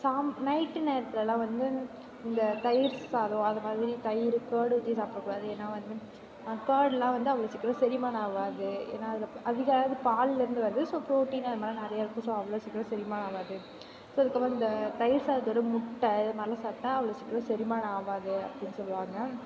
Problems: background sounds at intervals